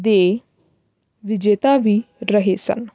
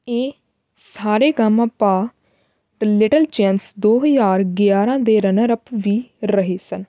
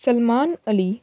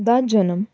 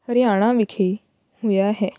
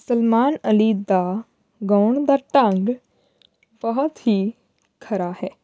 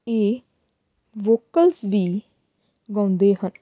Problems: background sounds at intervals